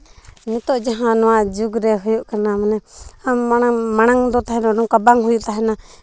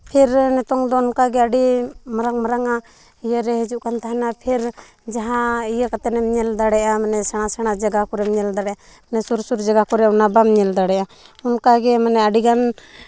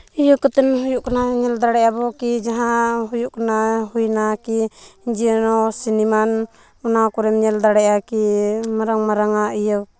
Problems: background sounds at intervals